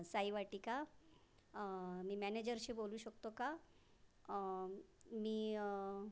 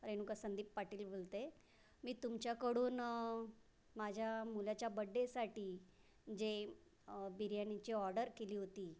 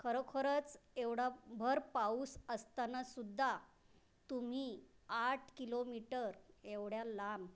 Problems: none marked